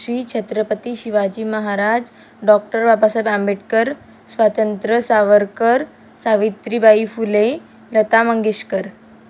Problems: none marked